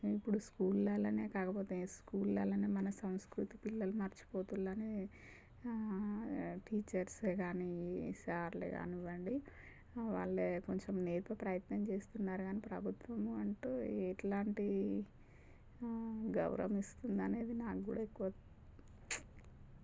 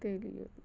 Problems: low volume